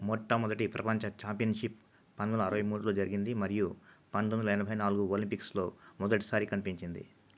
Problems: low volume